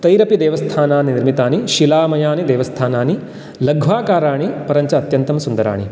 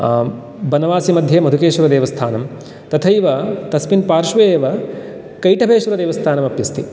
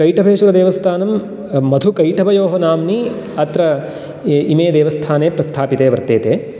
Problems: none marked